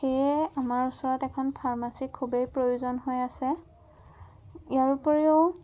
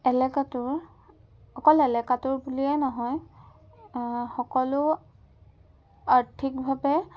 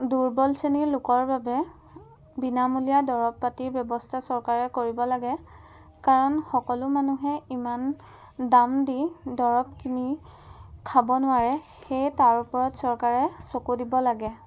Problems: none marked